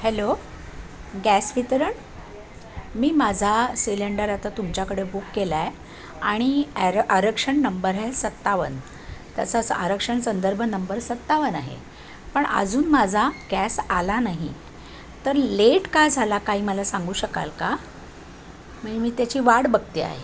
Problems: constant background noise, background conversations at intervals